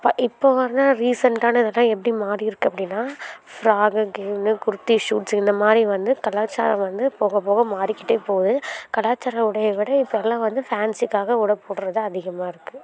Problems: continuous background conversations